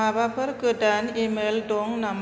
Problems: none marked